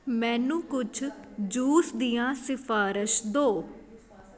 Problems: constant background noise